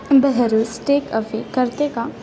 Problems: constant background noise, continuous background conversations